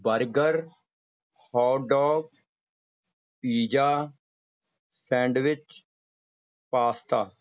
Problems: background sounds at intervals